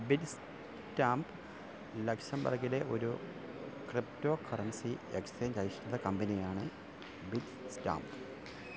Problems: constant background noise, low volume